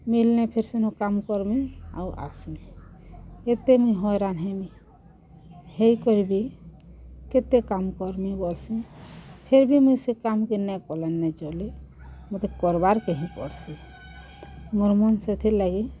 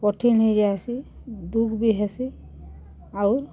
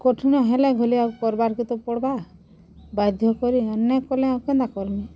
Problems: none marked